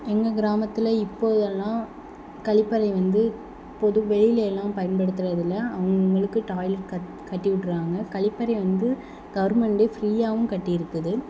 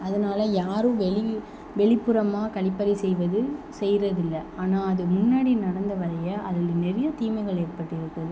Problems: none marked